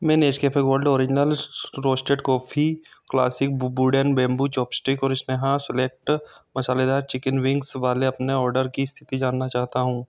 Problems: constant background noise